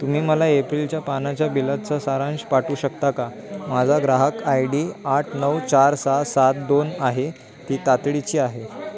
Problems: constant background noise, continuous background conversations